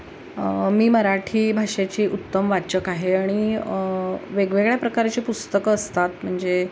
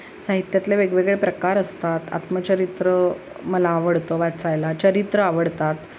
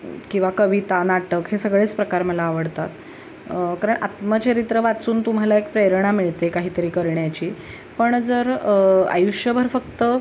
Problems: none marked